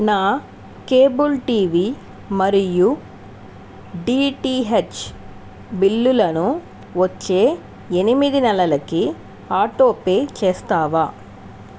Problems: constant background noise